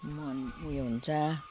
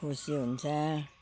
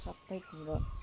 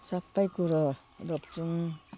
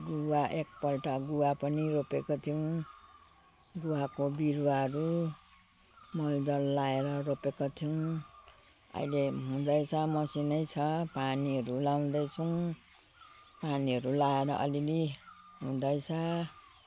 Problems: constant background noise